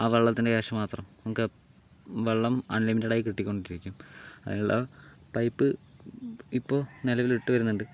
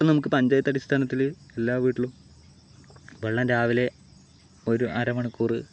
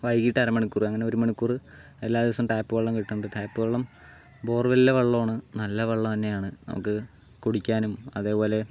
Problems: background sounds at intervals